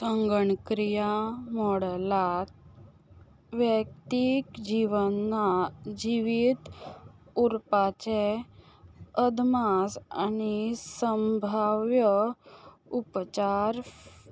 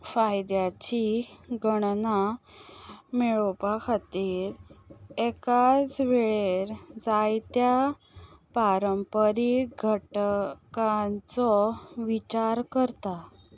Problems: background sounds at intervals